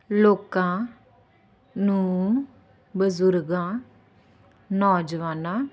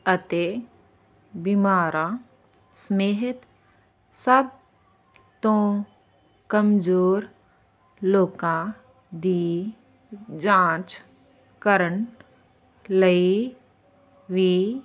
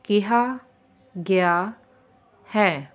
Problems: constant background noise